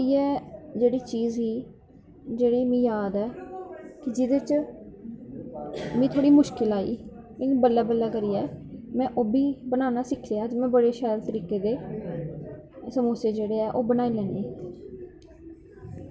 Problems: background sounds at intervals